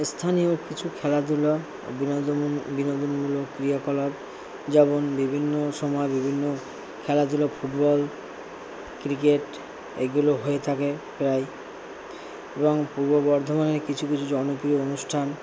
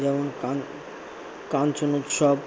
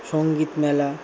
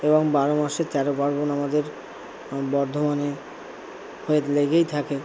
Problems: constant background noise, low volume